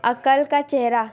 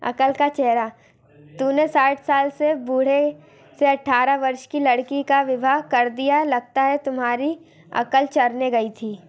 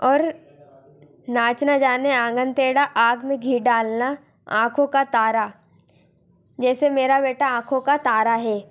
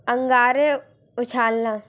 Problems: constant background noise, continuous background conversations